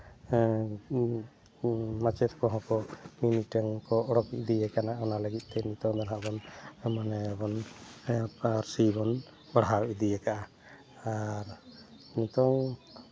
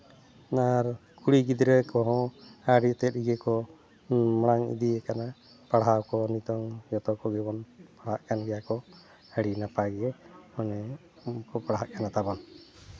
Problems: background sounds at intervals